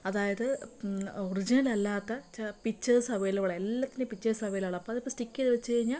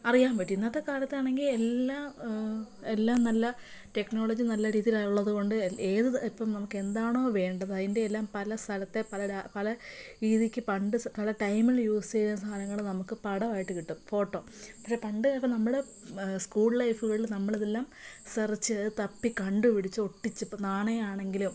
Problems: low volume